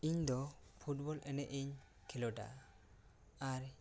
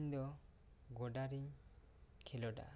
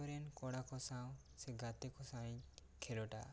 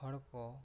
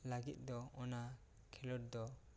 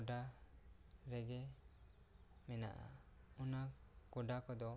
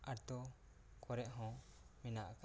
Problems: low volume